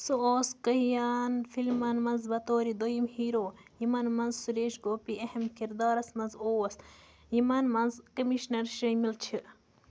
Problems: constant background noise